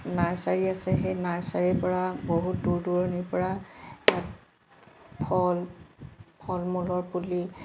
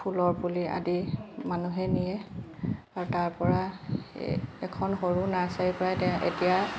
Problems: constant background noise